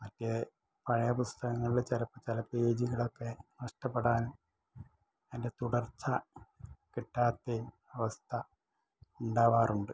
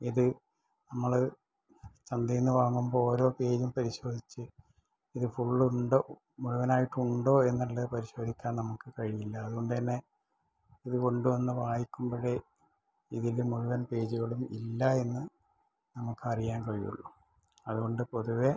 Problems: low volume